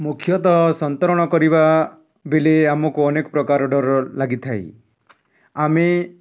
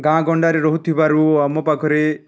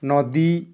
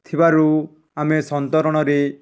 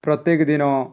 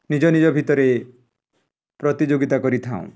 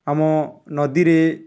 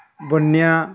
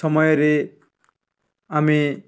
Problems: none marked